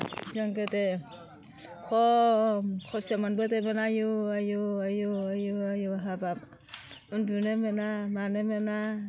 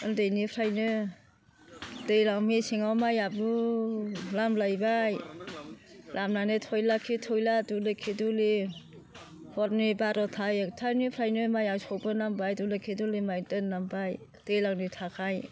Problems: constant background noise